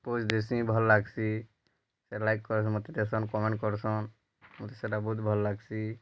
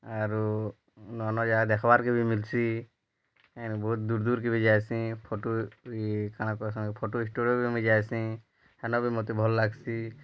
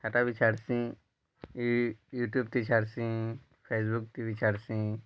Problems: low volume